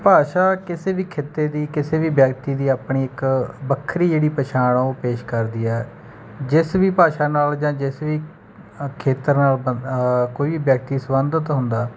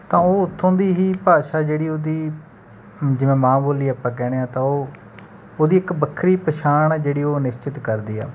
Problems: background sounds at intervals